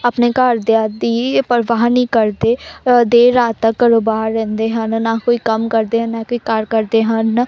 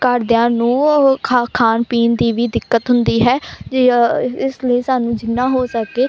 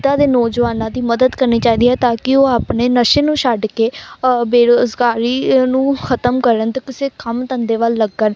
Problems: constant background noise, background conversations at intervals